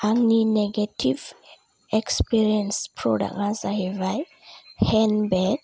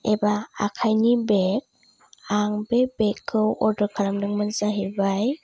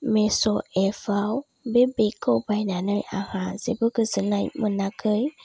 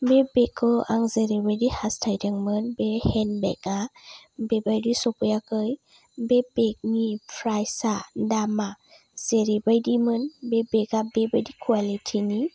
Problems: low volume